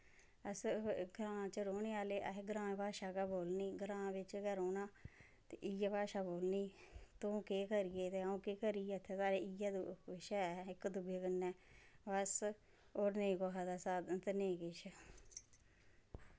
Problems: background sounds at intervals, low volume